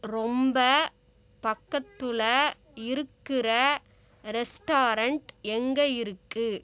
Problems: constant background noise